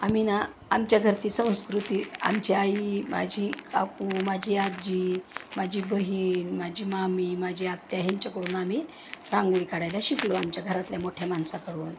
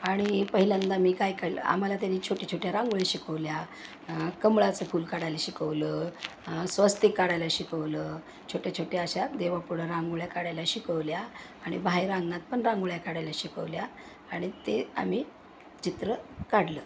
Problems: none marked